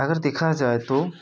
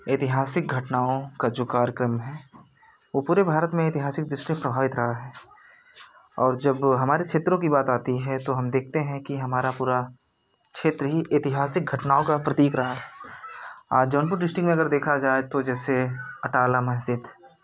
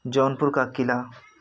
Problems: constant background noise